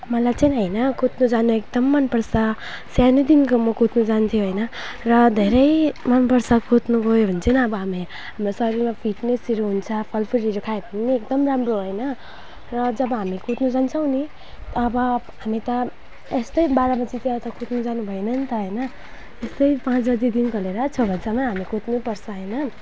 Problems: background sounds at intervals